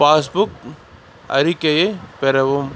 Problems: constant background noise